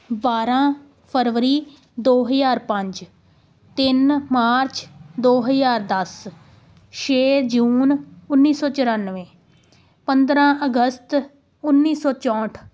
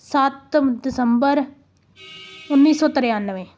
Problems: none marked